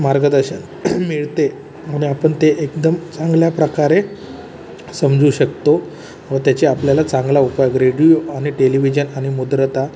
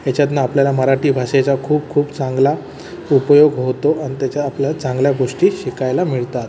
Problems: constant background noise, background conversations at intervals